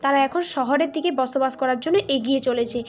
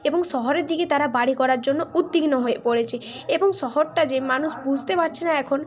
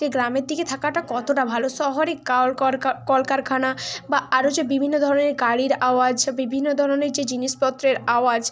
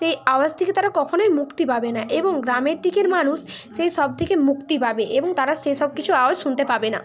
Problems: constant background noise, background conversations at intervals